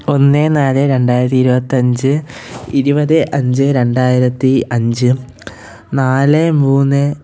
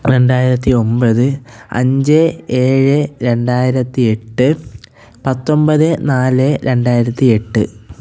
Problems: background sounds at intervals